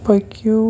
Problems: none marked